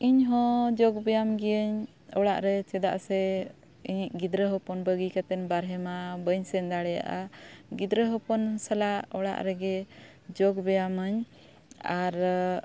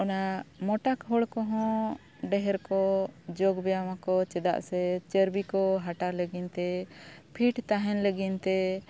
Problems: none marked